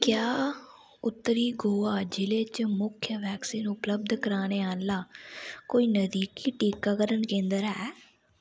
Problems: none marked